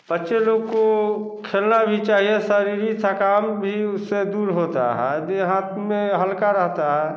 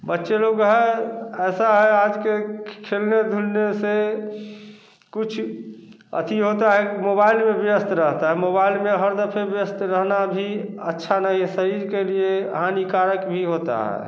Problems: none marked